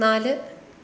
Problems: constant background noise